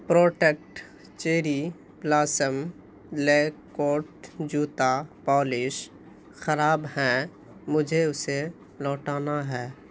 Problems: constant background noise